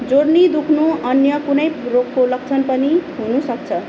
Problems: constant background noise